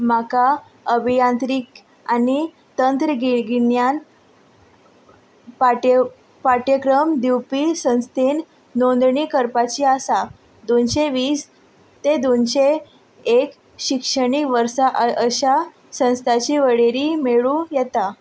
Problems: background sounds at intervals